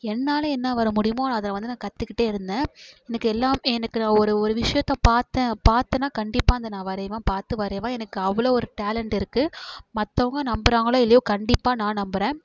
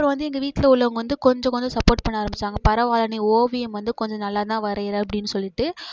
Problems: none marked